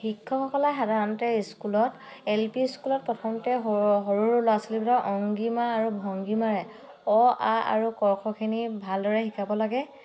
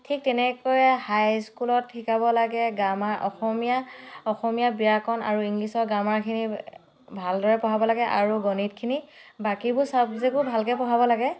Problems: none marked